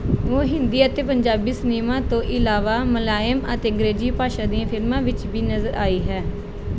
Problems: background conversations at intervals